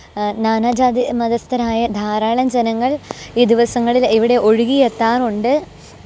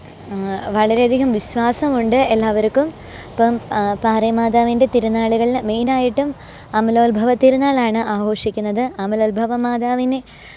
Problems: background sounds at intervals, background conversations at intervals